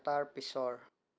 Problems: none marked